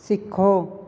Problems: none marked